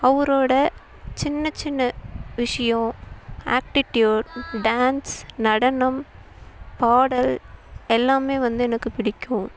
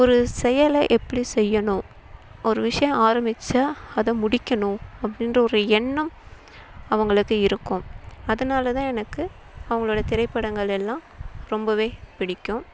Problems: constant background noise